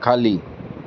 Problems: background sounds at intervals